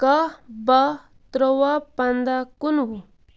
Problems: background sounds at intervals